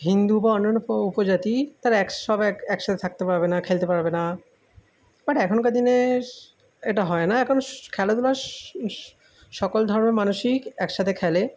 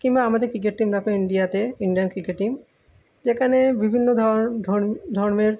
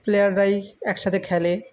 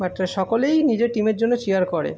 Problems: background sounds at intervals